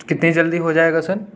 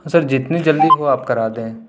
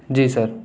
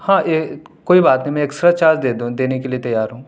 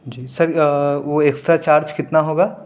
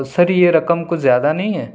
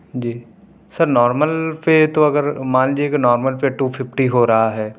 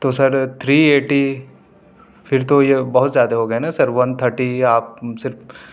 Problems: background sounds at intervals